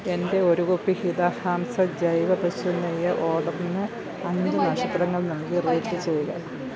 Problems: background conversations at intervals, low volume